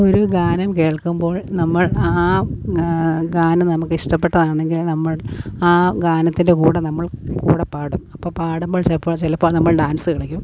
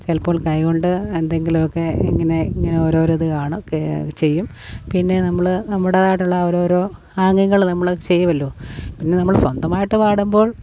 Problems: background sounds at intervals